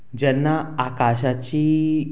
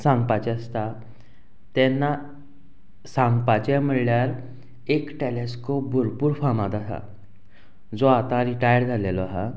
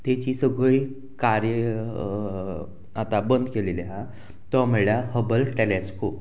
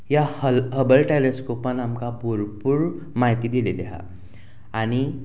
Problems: constant background noise